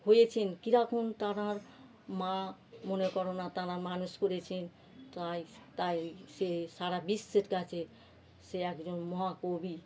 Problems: background sounds at intervals